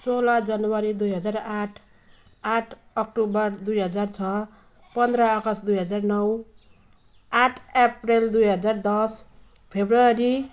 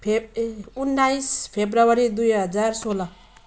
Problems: background sounds at intervals